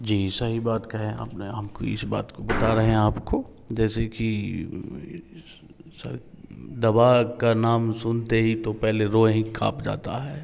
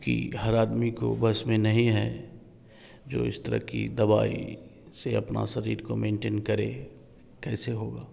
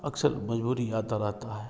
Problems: background sounds at intervals